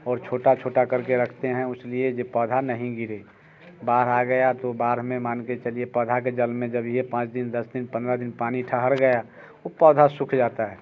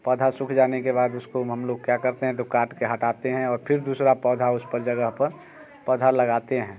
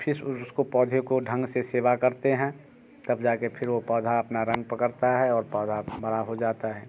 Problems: constant background noise